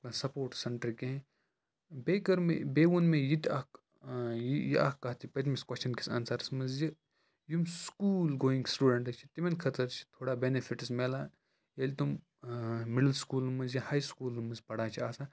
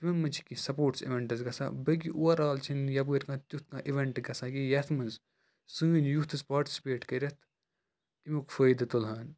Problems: low volume